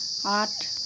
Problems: constant background noise, low volume